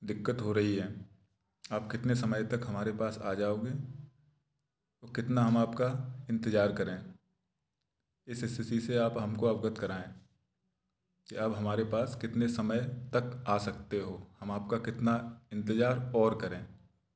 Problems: none marked